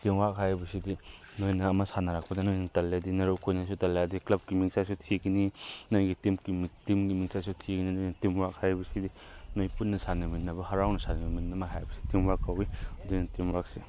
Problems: none marked